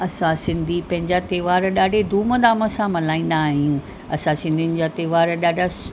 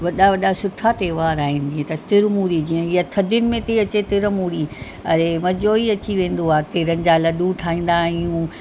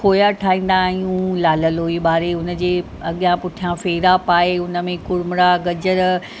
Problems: constant background noise